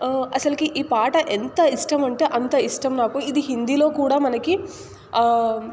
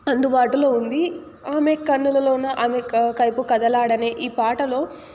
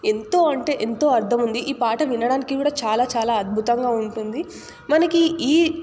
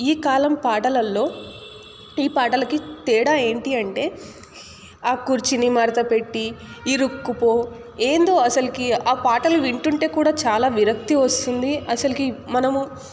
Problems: none marked